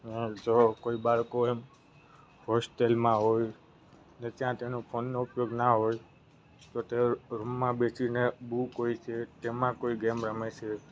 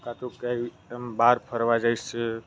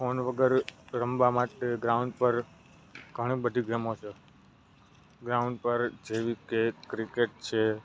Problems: none marked